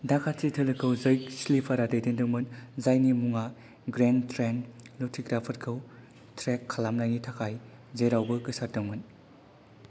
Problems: low volume